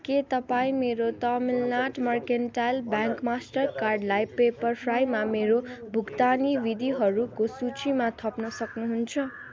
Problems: continuous background conversations